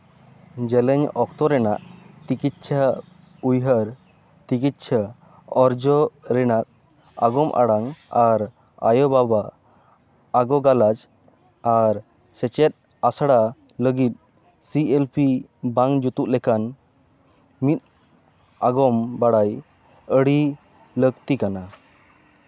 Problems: none marked